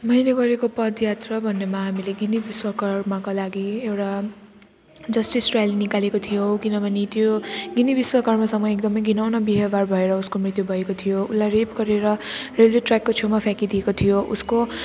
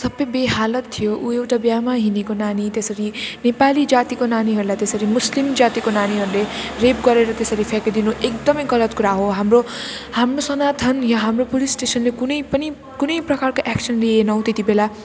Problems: constant background noise